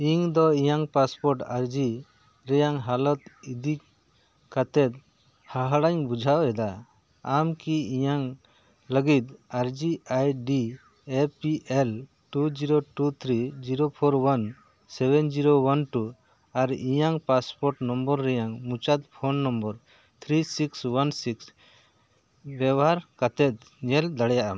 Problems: none marked